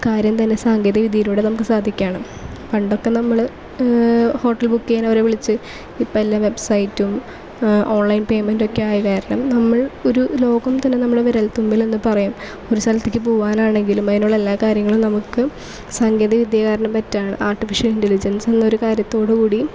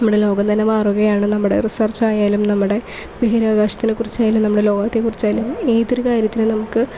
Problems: background sounds at intervals